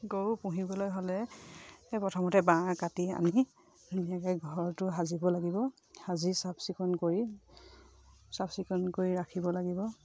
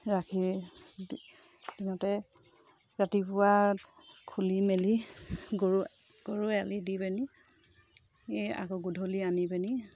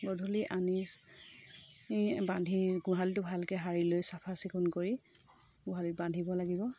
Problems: low volume